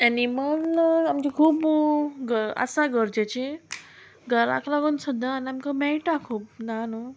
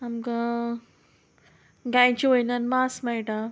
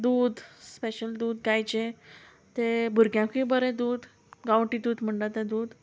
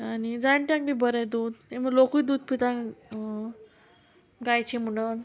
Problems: constant background noise